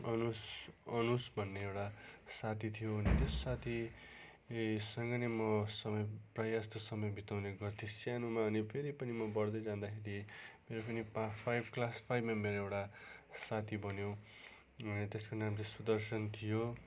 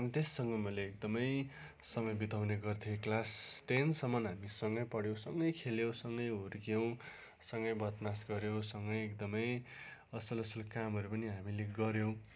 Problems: constant background noise